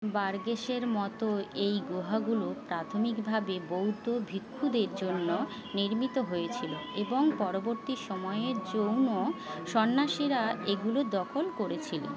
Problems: constant background noise, continuous background conversations